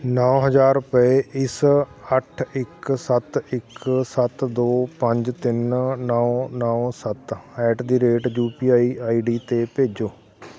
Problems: none marked